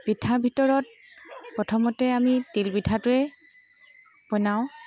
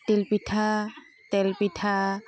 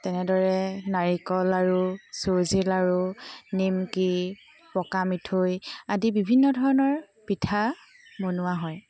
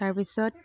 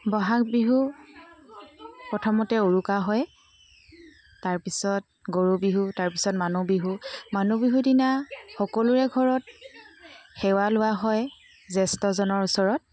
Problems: constant background noise